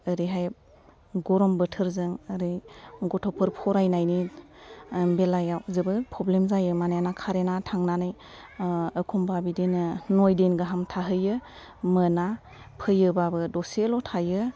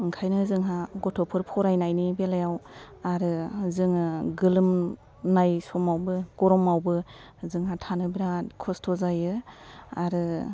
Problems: background sounds at intervals, low volume